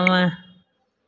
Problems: echo